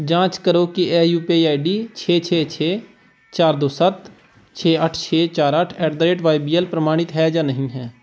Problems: background sounds at intervals